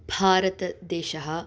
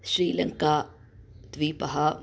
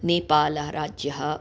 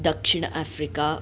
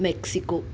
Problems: none marked